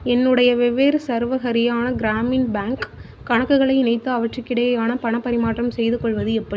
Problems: constant background noise